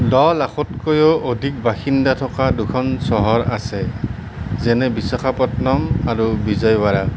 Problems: constant background noise